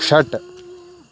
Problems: constant background noise